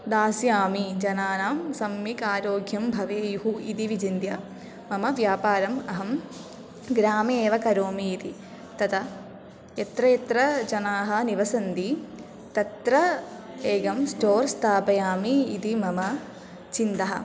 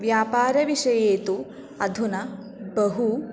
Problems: constant background noise